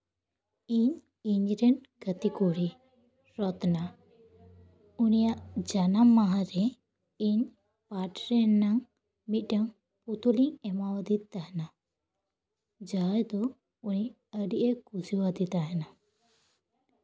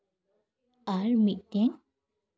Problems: background sounds at intervals